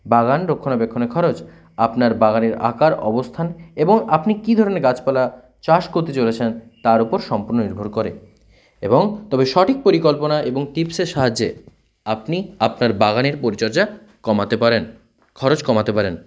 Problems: constant background noise